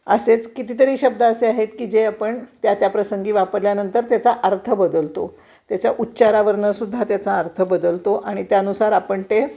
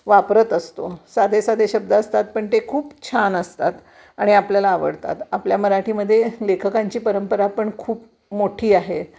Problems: constant background noise